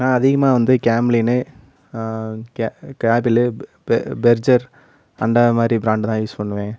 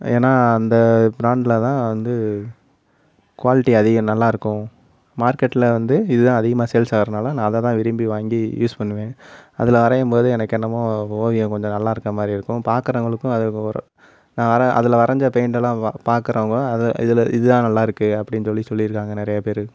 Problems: background sounds at intervals, background conversations at intervals